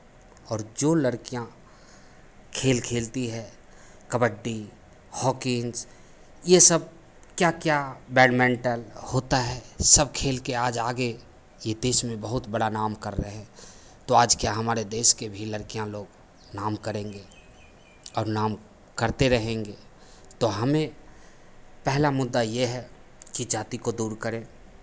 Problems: constant background noise, background conversations at intervals